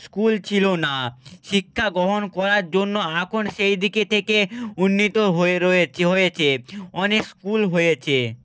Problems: none marked